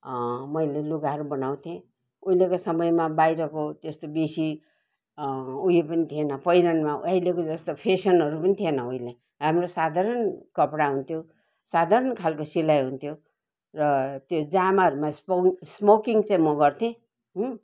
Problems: none marked